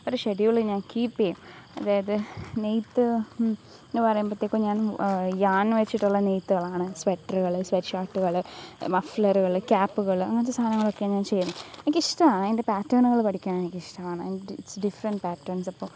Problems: background sounds at intervals